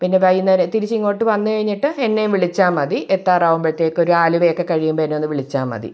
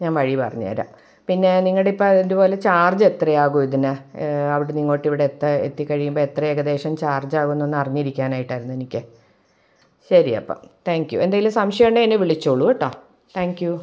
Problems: none marked